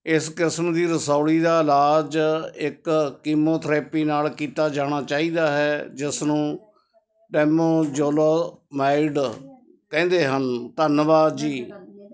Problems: constant background noise, background conversations at intervals